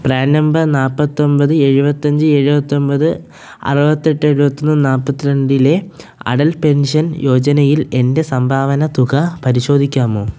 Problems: none marked